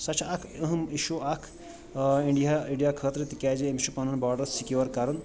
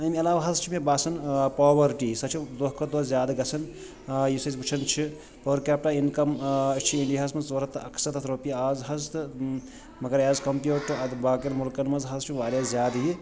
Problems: none marked